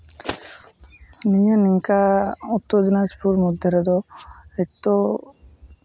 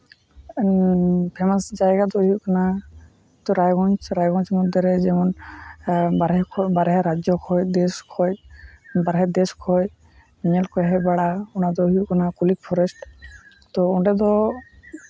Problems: constant background noise, low volume